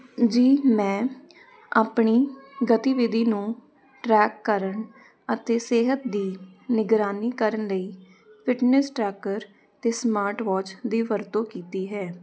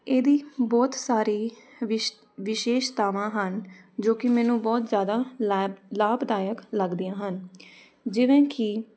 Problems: none marked